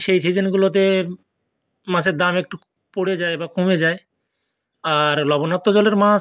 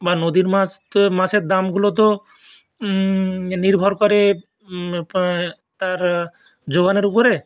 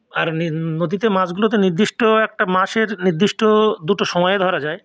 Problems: none marked